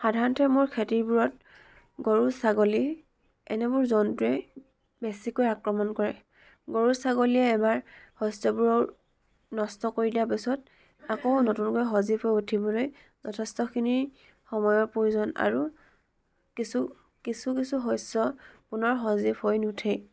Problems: none marked